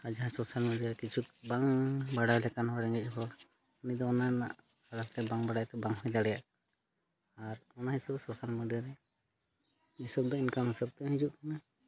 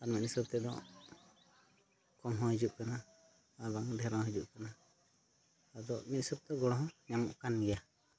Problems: none marked